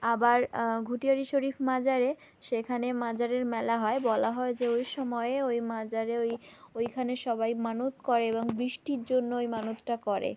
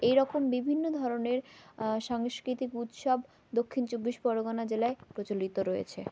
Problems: background sounds at intervals